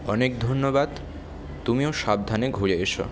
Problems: none marked